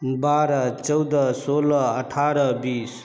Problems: constant background noise, background conversations at intervals